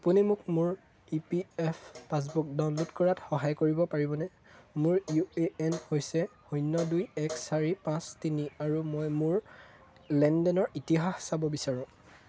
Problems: constant background noise